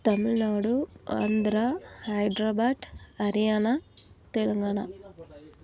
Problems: background sounds at intervals